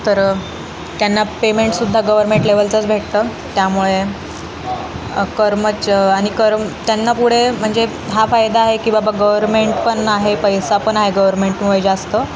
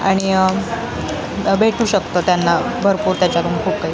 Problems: constant background noise, continuous background conversations